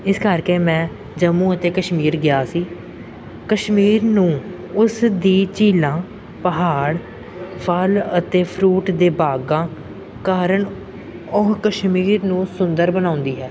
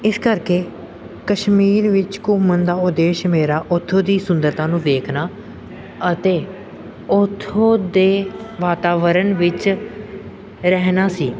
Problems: background sounds at intervals, background conversations at intervals